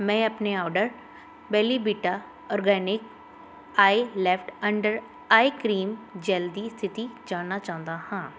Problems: constant background noise